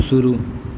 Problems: none marked